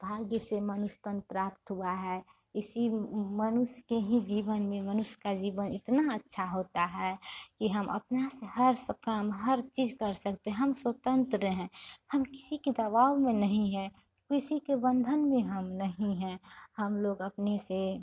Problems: none marked